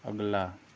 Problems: constant background noise